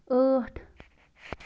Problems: constant background noise